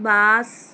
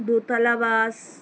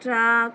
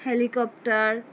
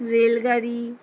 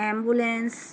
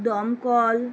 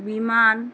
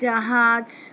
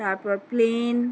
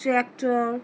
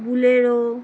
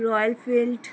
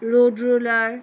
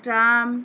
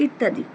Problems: background sounds at intervals